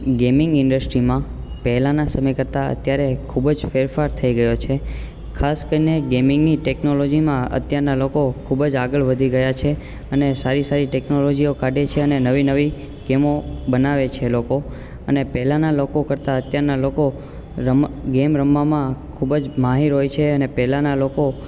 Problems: constant background noise